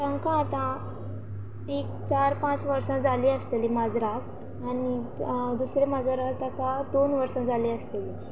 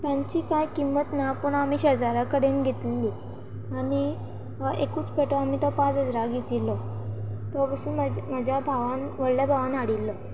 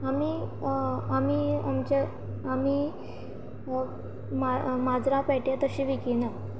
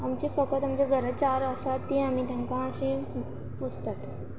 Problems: constant background noise